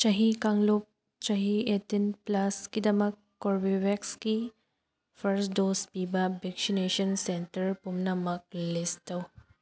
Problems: background sounds at intervals